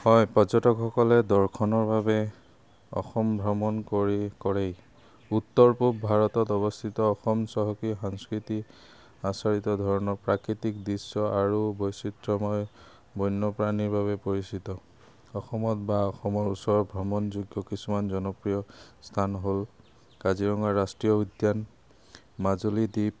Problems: none marked